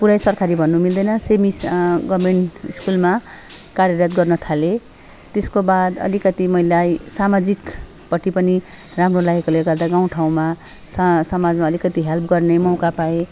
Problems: constant background noise, background conversations at intervals